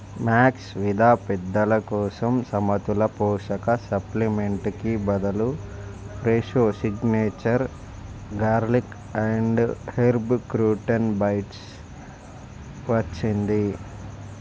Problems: constant background noise